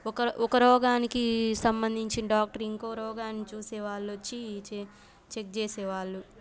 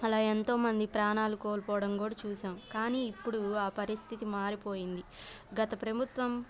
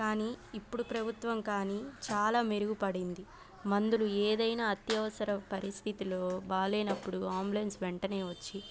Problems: background sounds at intervals